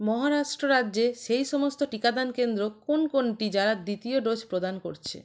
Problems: none marked